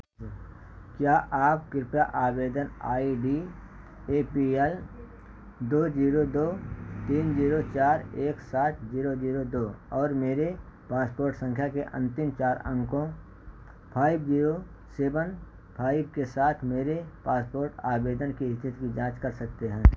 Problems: none marked